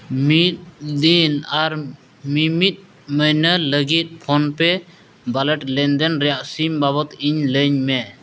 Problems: constant background noise